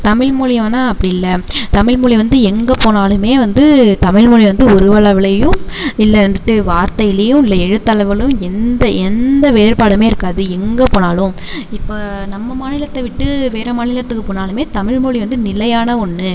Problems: none marked